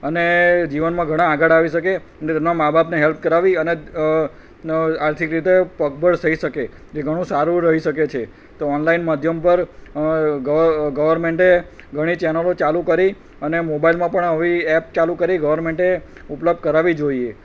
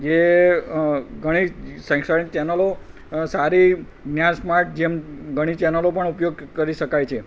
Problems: none marked